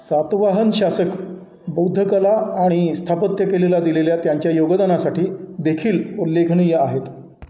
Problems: none marked